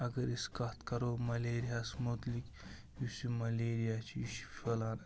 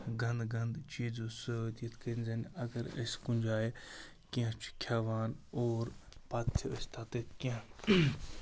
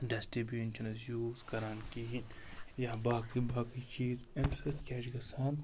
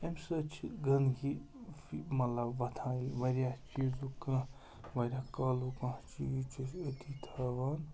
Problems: constant background noise